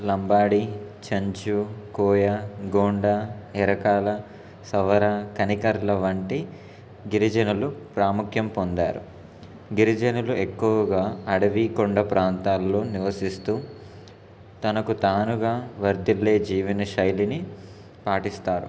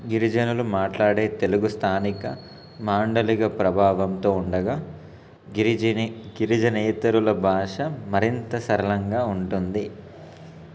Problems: constant background noise